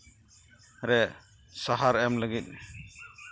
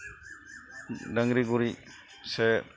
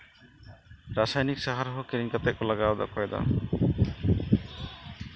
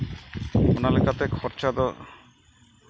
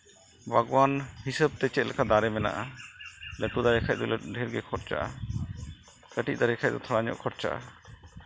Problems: constant background noise